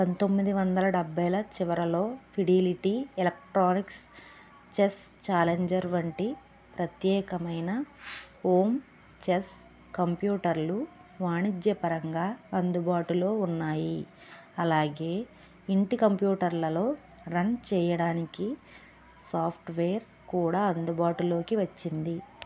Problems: none marked